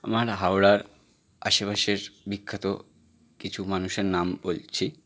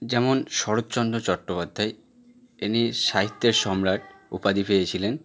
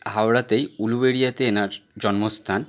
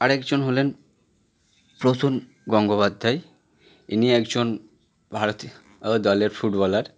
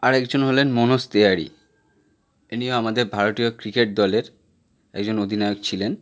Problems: continuous background conversations